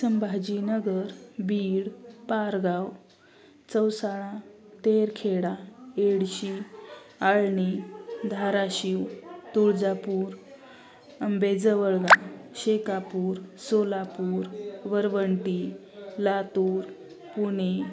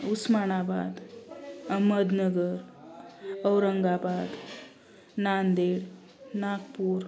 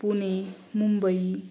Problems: constant background noise, background conversations at intervals